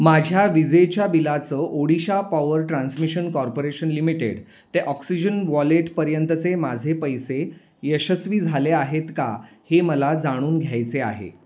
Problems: none marked